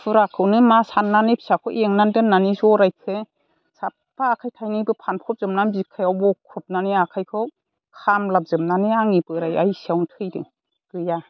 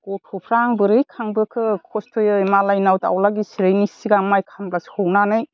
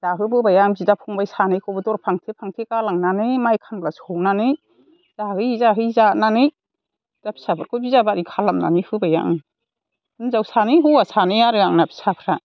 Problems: constant background noise